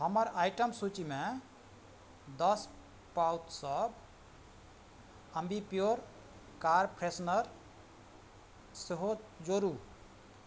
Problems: none marked